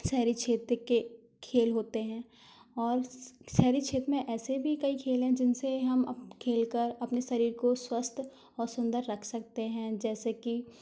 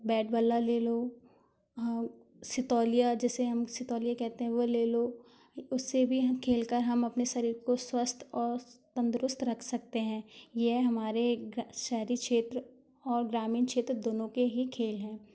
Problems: none marked